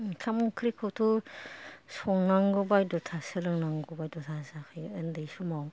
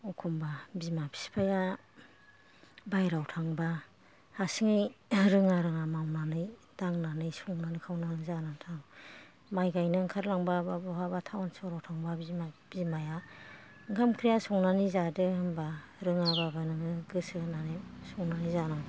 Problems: none marked